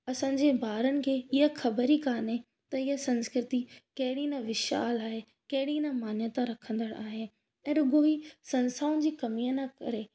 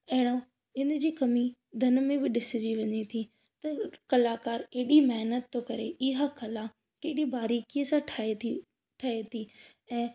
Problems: none marked